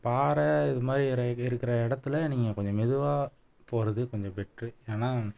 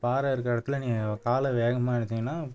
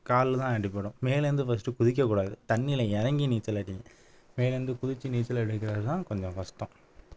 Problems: none marked